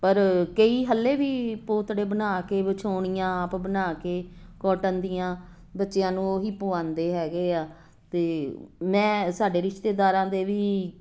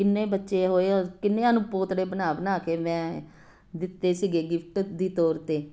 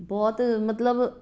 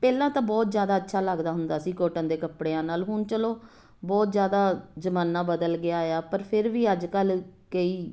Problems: constant background noise